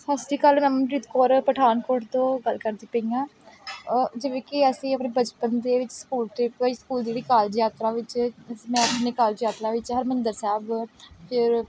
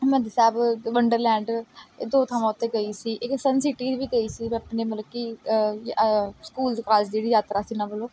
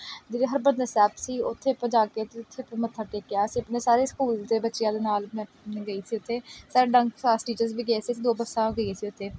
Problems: background sounds at intervals